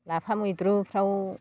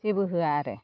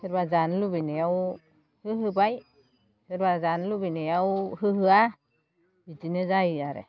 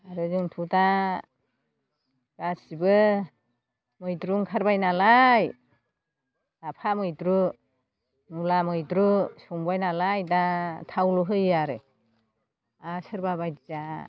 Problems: none marked